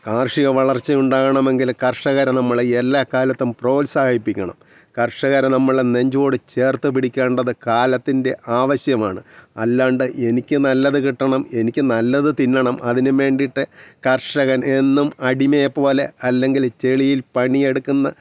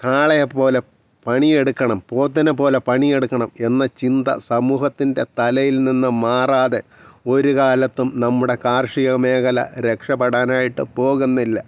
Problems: background sounds at intervals